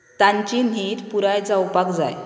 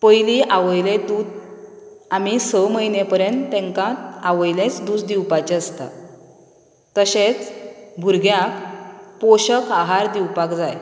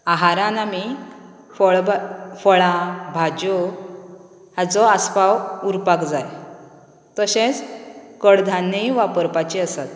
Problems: none marked